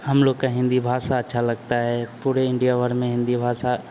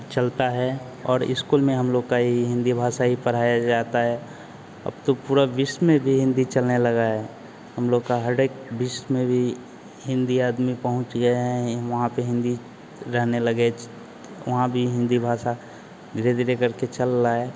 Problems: constant background noise